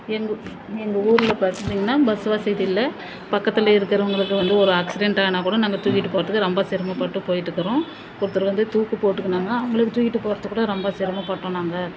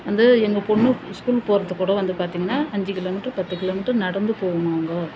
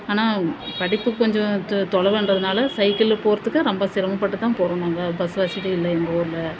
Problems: constant background noise